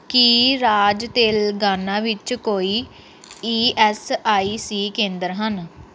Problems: background sounds at intervals